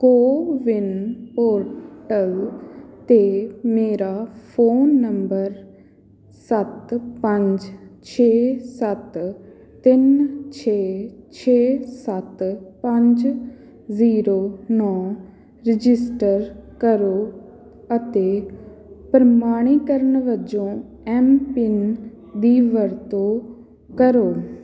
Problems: continuous background conversations